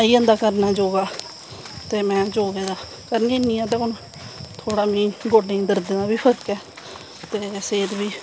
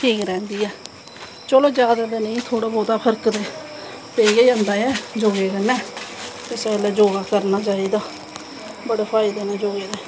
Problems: constant background noise